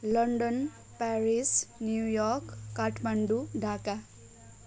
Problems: continuous background conversations